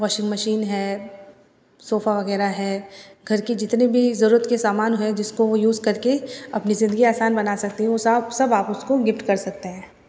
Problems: none marked